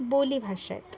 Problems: constant background noise, continuous background conversations